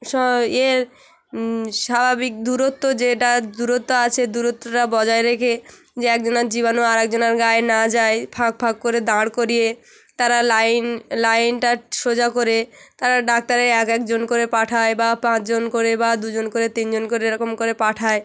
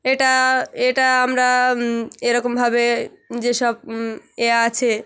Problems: background sounds at intervals